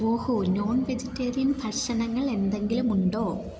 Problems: none marked